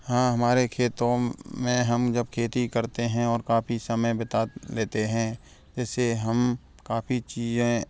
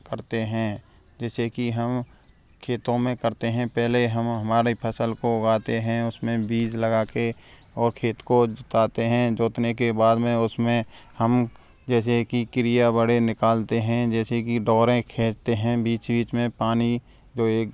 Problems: none marked